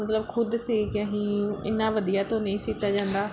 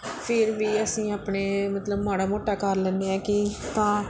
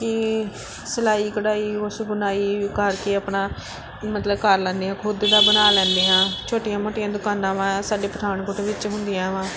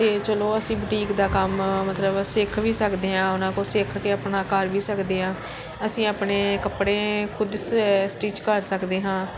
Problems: background sounds at intervals